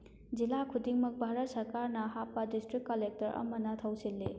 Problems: none marked